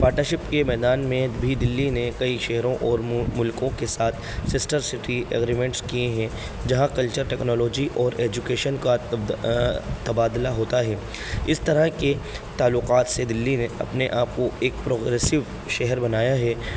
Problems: constant background noise